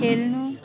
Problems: background sounds at intervals